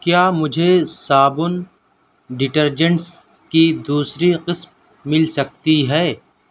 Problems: none marked